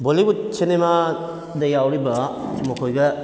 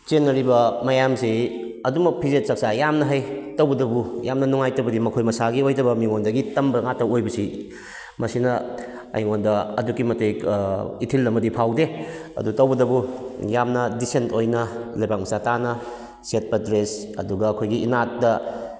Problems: none marked